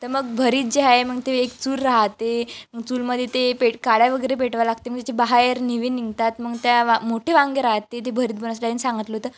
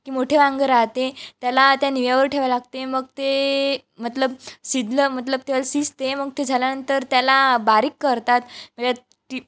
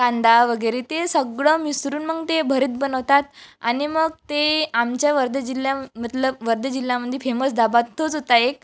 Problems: constant background noise